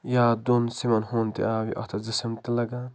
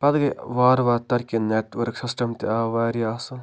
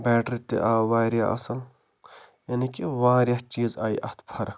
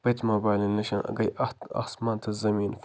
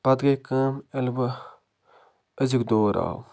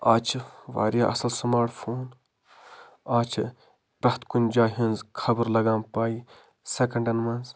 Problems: none marked